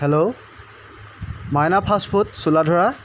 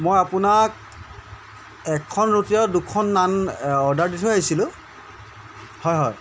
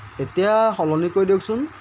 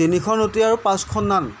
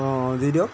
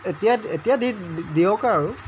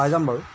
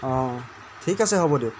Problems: constant background noise